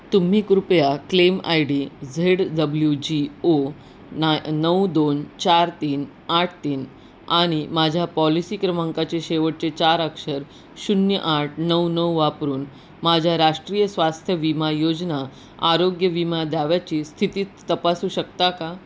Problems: none marked